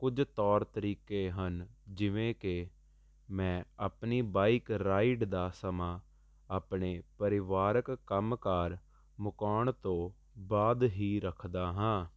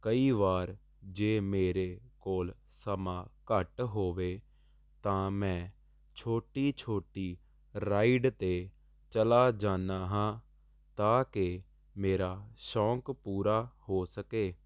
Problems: constant background noise